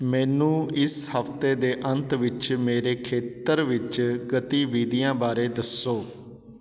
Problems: none marked